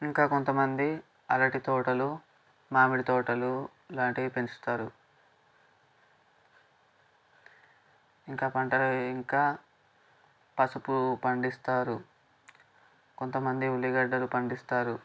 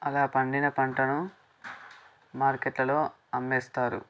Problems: background sounds at intervals